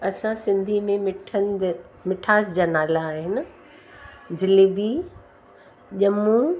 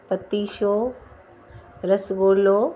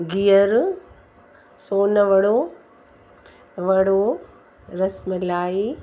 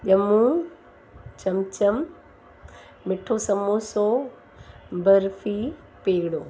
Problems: constant background noise